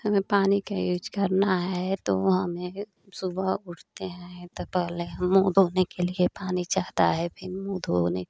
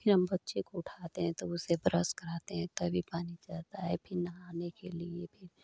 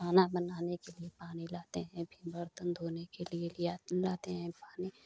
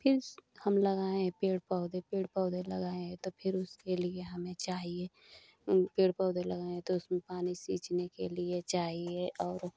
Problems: none marked